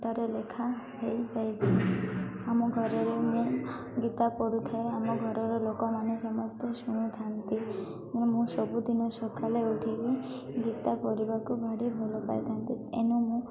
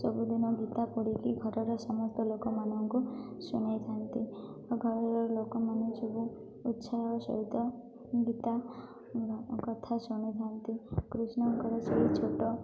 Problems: constant background noise, continuous background conversations